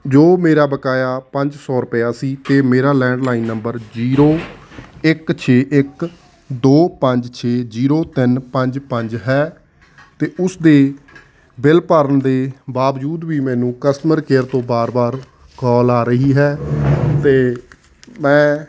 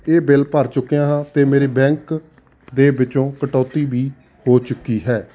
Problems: none marked